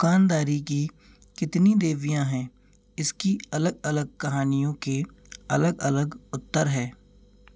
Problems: constant background noise